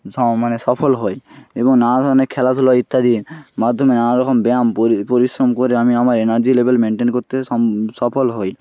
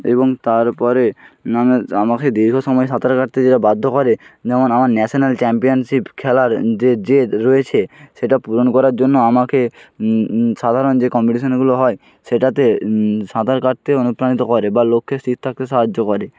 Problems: none marked